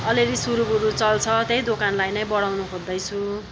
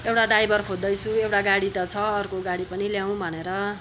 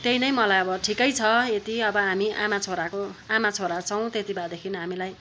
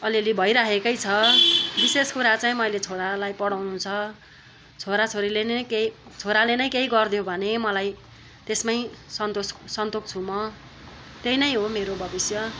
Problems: none marked